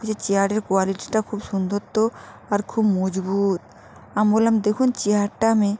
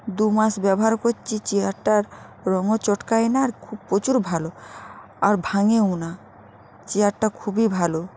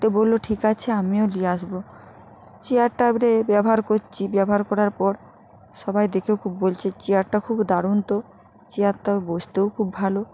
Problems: none marked